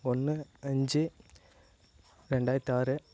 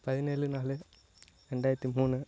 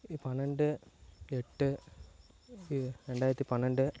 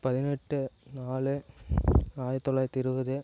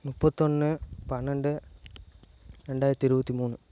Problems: low volume